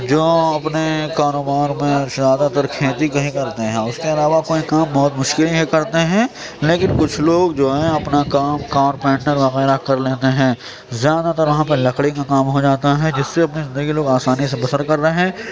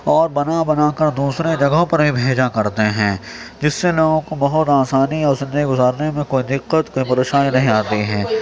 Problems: constant background noise, continuous background conversations, low volume